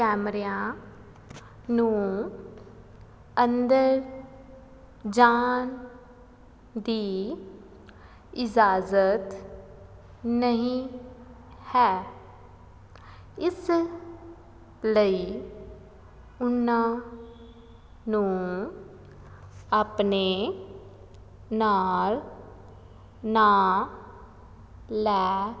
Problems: background sounds at intervals